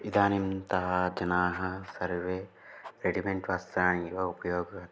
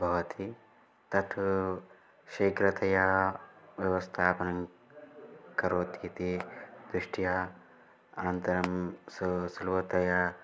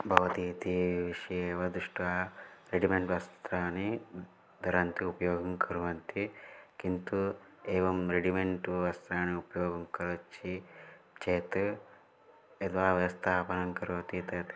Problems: low volume